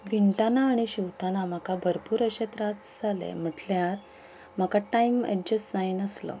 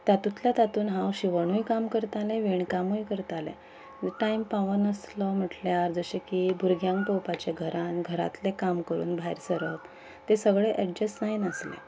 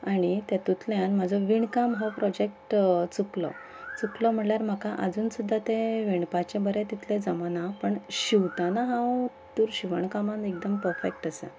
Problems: background sounds at intervals